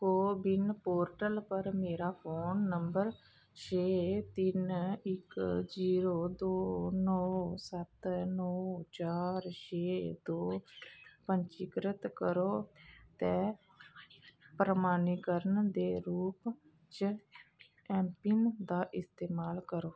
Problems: none marked